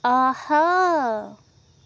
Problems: none marked